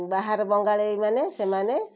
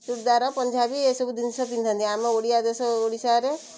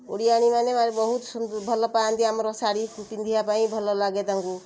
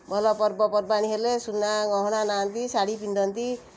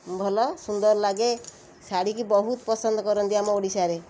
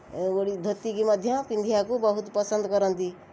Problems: constant background noise